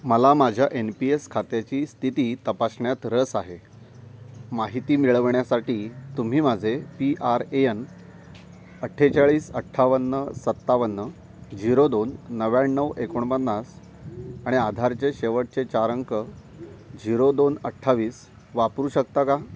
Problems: none marked